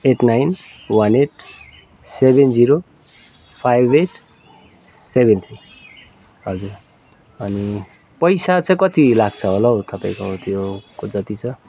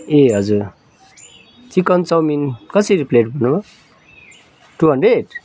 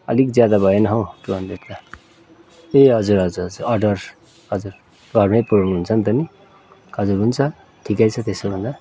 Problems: none marked